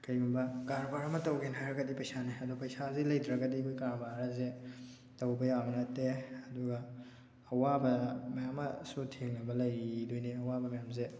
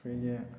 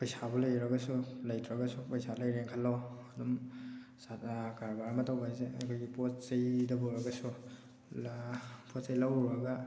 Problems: none marked